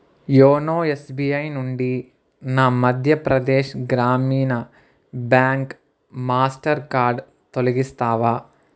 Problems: none marked